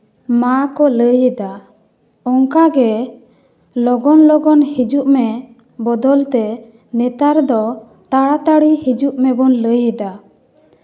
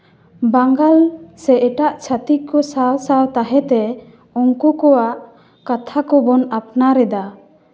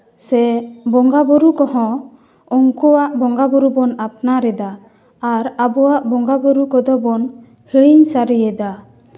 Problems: echo